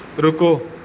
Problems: background sounds at intervals